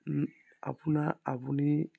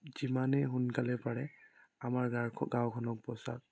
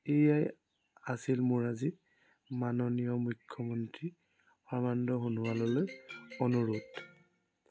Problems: background sounds at intervals